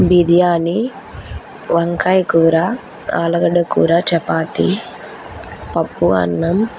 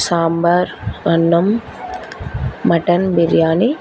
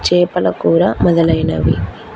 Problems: constant background noise